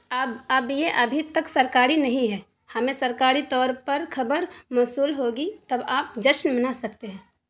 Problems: none marked